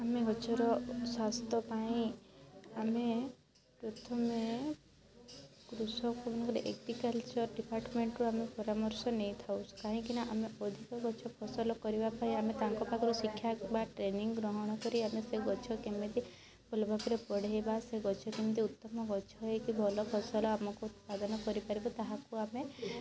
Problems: constant background noise, continuous background conversations